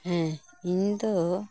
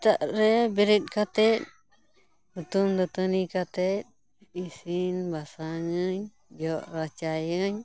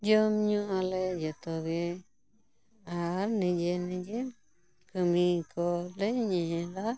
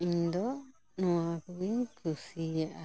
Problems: constant background noise